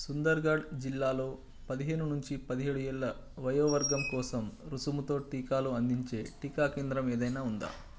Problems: constant background noise